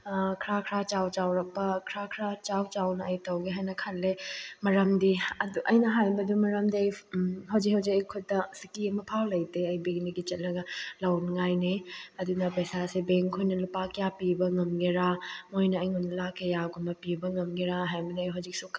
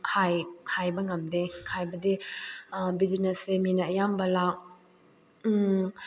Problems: none marked